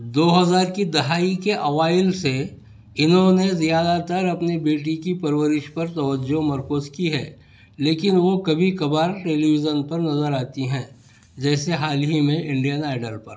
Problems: constant background noise, background conversations at intervals